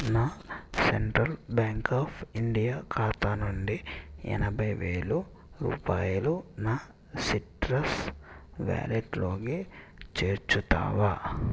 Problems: constant background noise